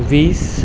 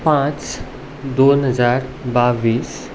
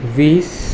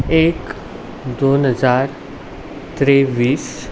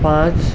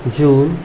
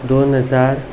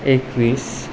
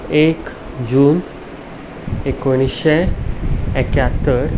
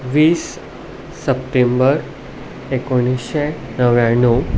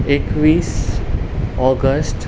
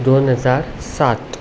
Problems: constant background noise